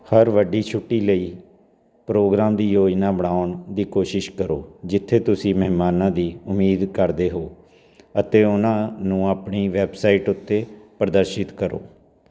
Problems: none marked